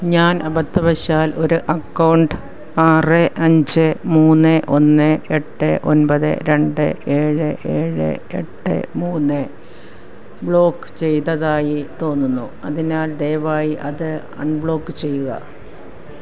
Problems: background sounds at intervals